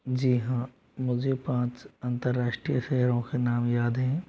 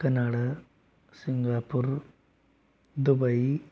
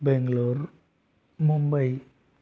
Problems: background sounds at intervals